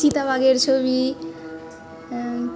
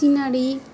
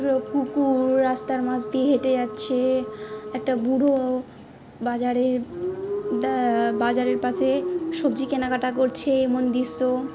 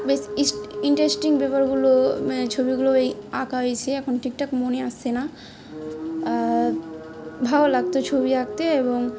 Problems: constant background noise, background conversations at intervals